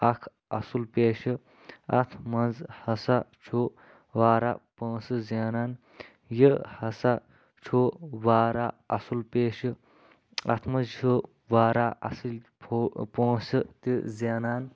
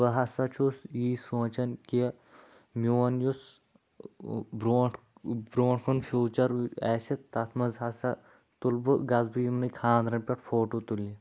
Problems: background sounds at intervals